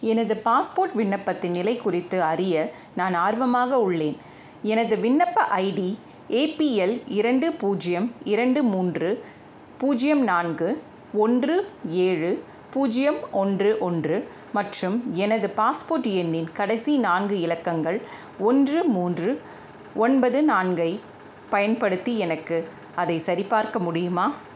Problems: constant background noise